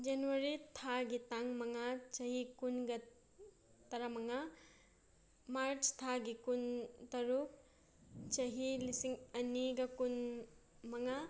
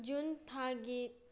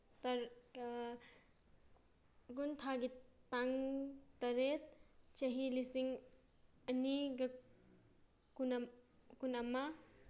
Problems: none marked